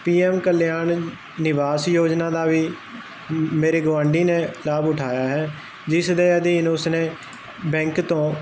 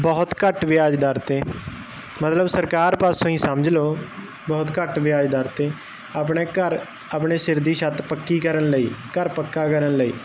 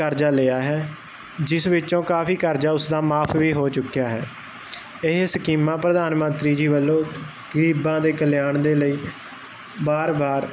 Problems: constant background noise